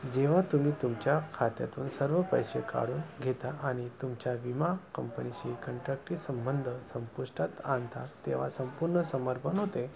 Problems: constant background noise